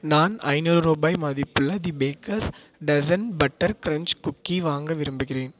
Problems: none marked